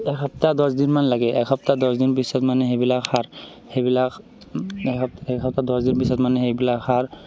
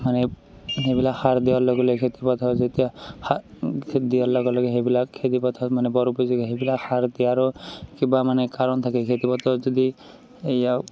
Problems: constant background noise, continuous background conversations